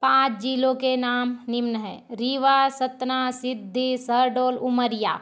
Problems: constant background noise